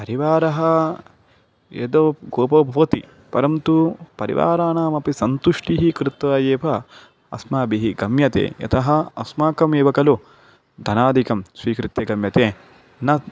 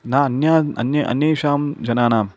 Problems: none marked